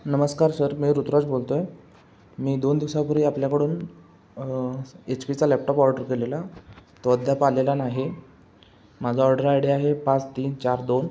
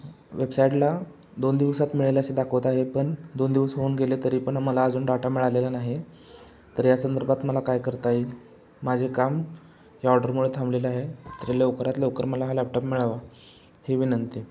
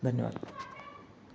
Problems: none marked